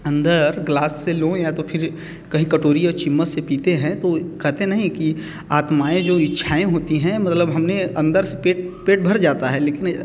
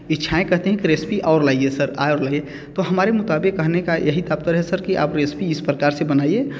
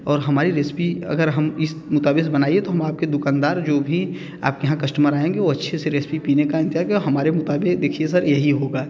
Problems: none marked